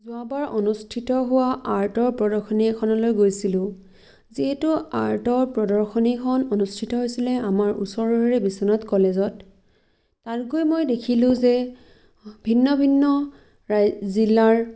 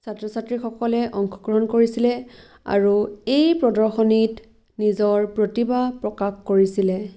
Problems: none marked